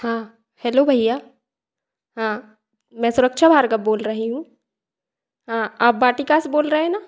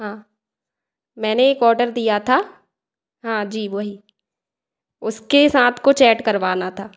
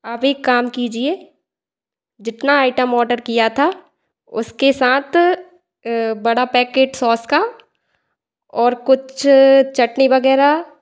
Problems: background sounds at intervals, echo